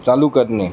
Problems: none marked